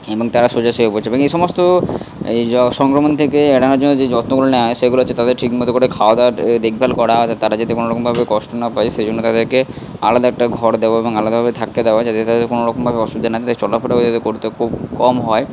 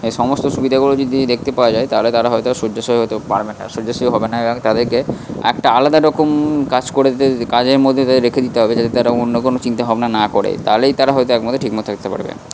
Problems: constant background noise